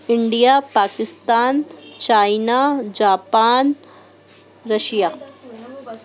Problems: constant background noise